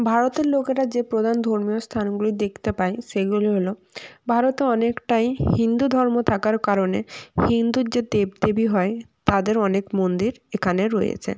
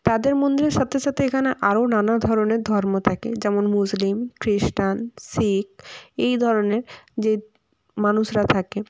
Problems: background sounds at intervals